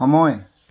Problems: constant background noise